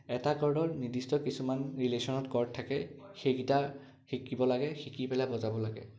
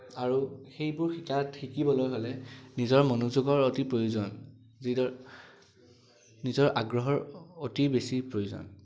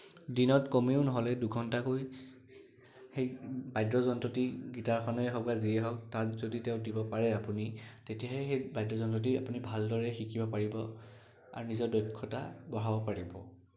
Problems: background sounds at intervals